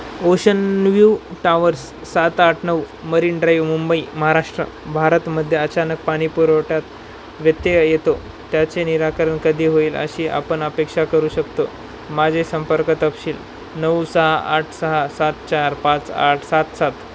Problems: constant background noise